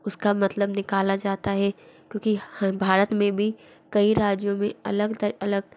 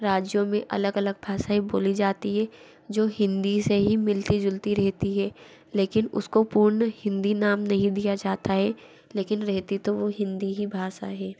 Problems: background sounds at intervals